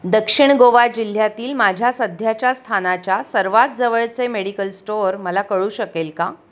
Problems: none marked